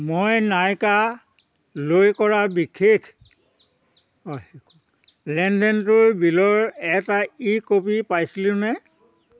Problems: constant background noise, background conversations at intervals